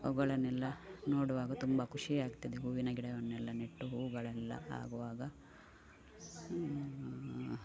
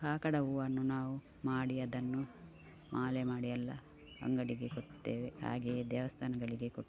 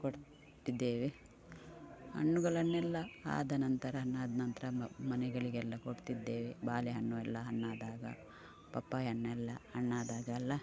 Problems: background sounds at intervals